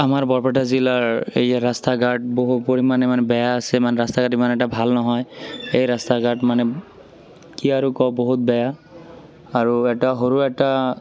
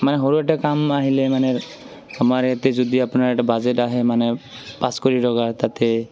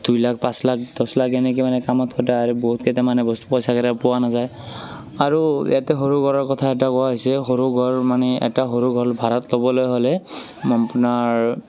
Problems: background sounds at intervals, continuous background conversations